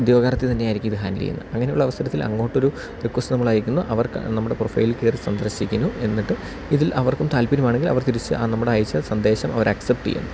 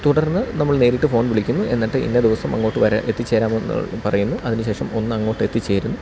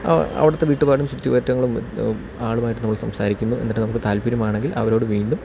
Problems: none marked